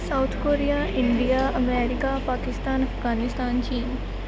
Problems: constant background noise